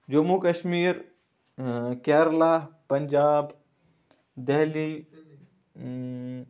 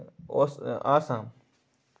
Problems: none marked